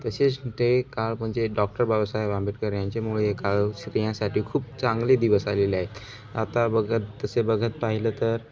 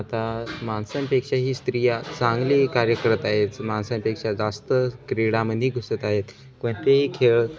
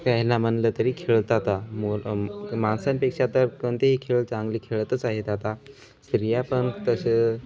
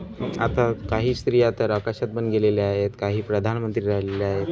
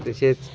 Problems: continuous background conversations